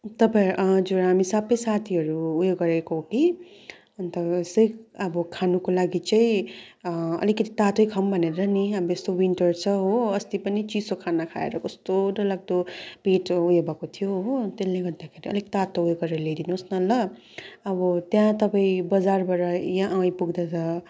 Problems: constant background noise, continuous background conversations